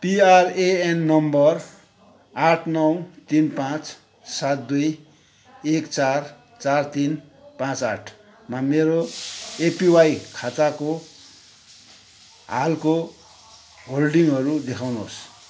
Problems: continuous background conversations